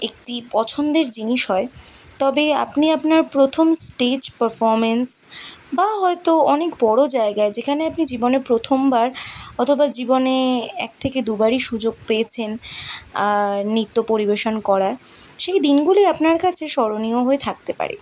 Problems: none marked